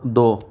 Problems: constant background noise